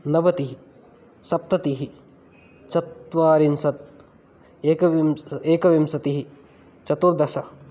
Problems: none marked